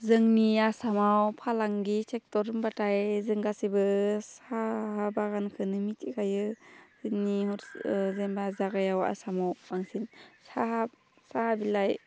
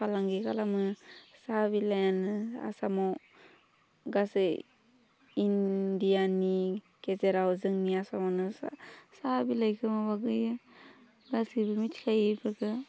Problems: constant background noise